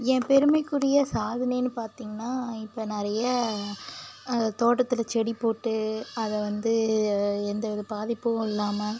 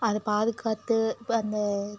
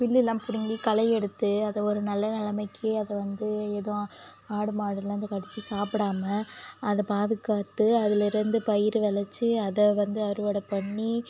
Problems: constant background noise